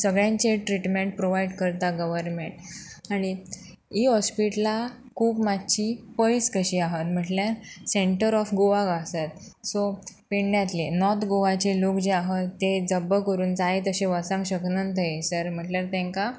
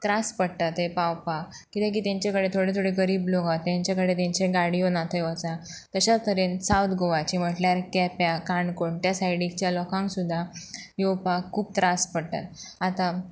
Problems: constant background noise